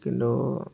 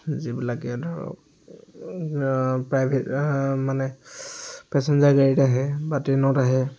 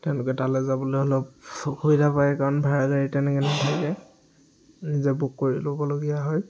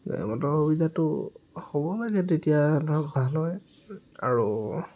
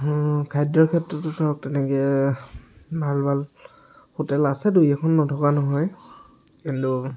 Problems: background sounds at intervals, background conversations at intervals